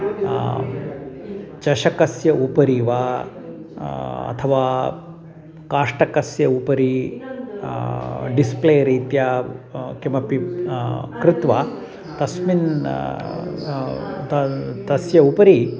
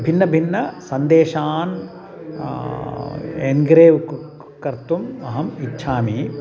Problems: background sounds at intervals, background conversations at intervals